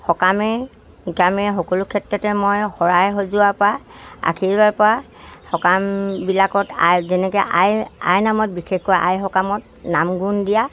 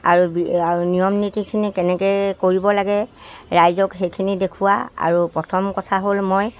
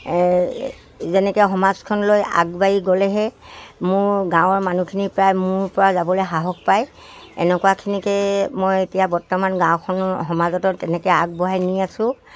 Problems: none marked